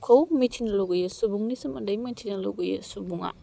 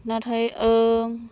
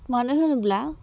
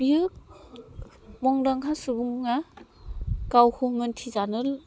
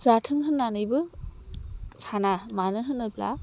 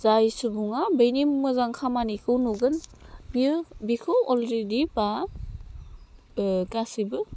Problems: constant background noise